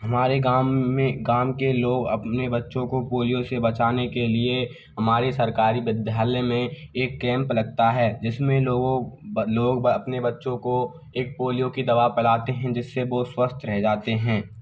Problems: none marked